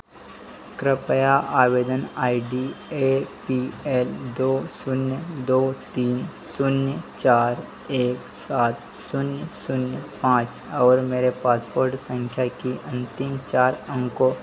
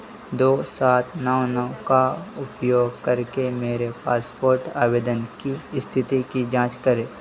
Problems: none marked